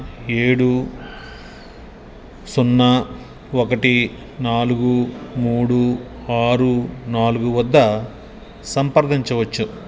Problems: background sounds at intervals